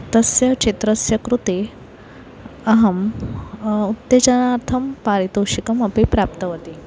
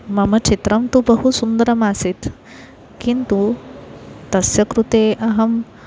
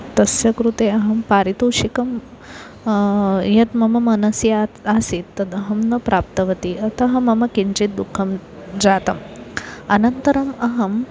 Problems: constant background noise, continuous background conversations